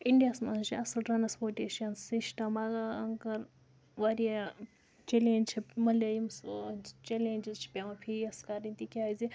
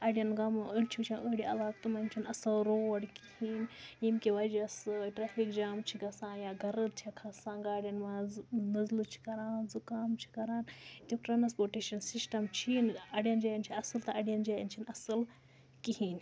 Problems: background sounds at intervals